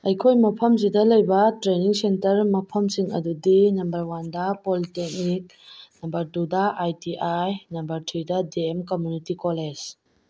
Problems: none marked